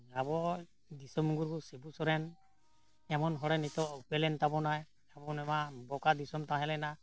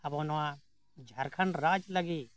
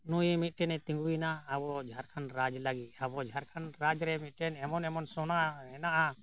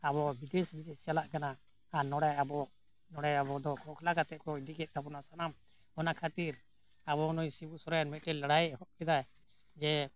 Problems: none marked